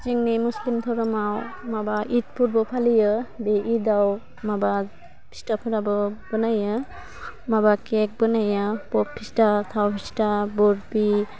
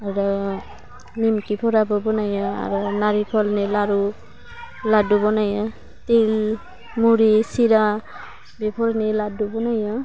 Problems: low volume